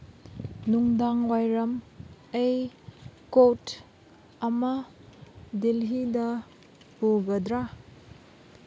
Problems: none marked